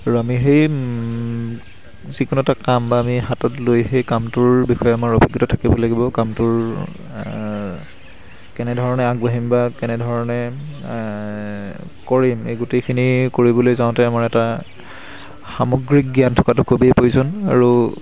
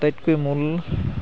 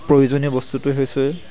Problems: constant background noise